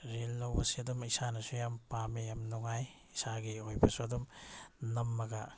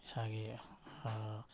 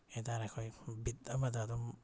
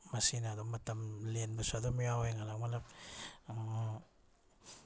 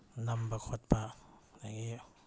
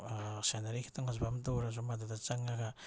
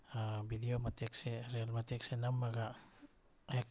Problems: none marked